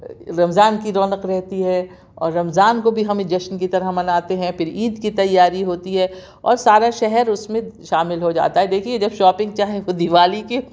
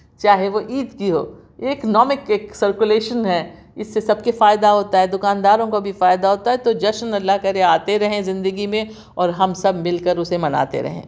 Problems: none marked